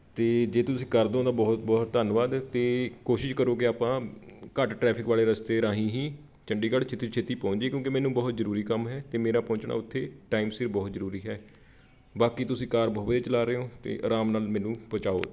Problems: background sounds at intervals